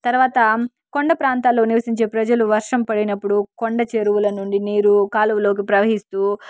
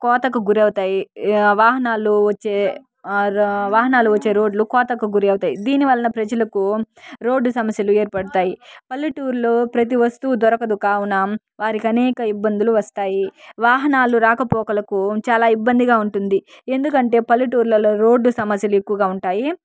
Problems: background sounds at intervals, background conversations at intervals